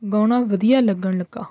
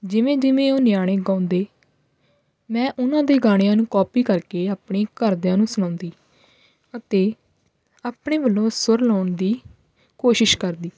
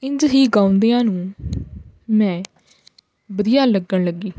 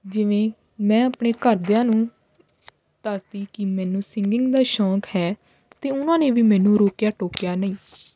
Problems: background sounds at intervals